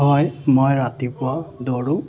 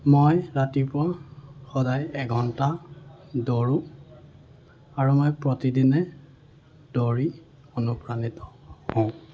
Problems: none marked